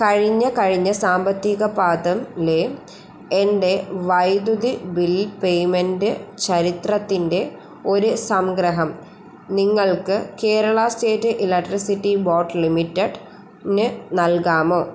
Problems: constant background noise